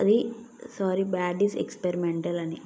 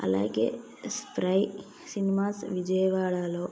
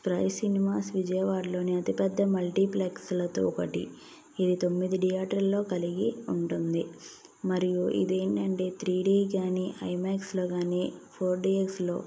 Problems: none marked